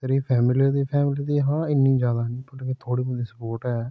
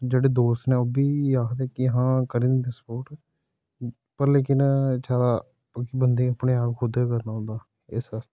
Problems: background sounds at intervals